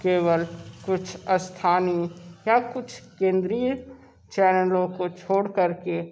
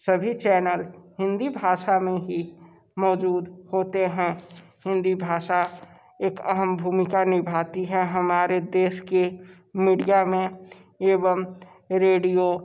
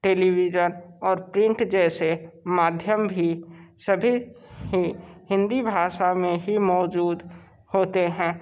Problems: background sounds at intervals, background conversations at intervals